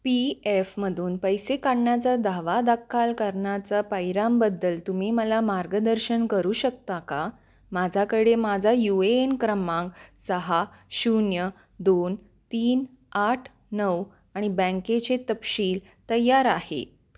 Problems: none marked